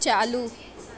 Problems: none marked